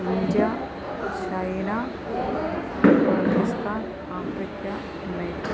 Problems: constant background noise